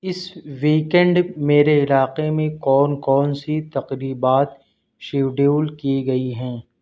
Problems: constant background noise